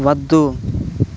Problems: constant background noise